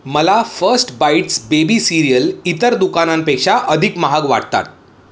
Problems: background sounds at intervals, echo